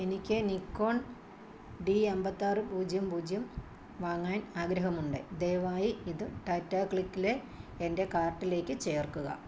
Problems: low volume